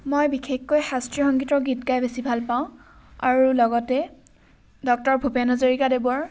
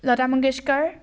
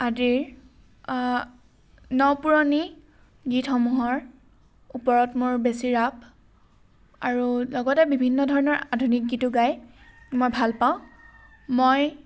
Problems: background sounds at intervals